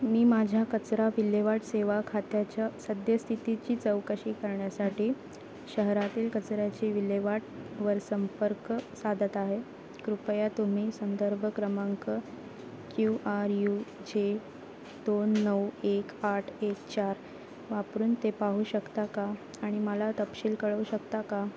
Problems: constant background noise, continuous background conversations